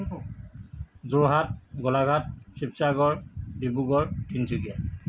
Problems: none marked